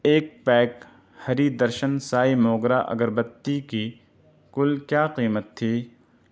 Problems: none marked